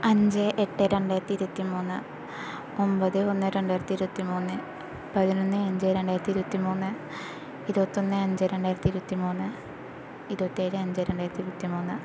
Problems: none marked